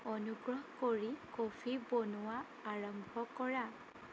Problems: constant background noise